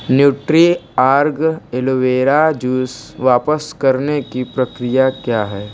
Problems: background sounds at intervals